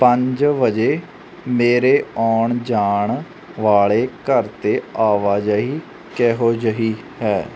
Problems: constant background noise